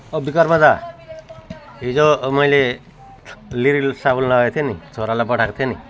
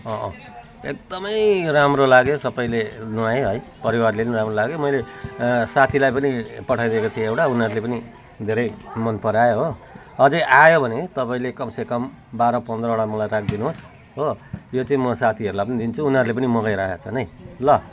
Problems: continuous background conversations